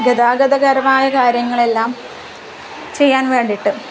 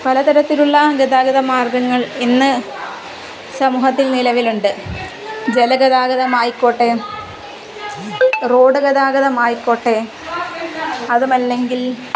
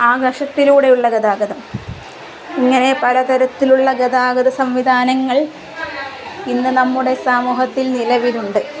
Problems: constant background noise